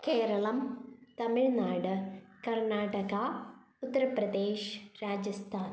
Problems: none marked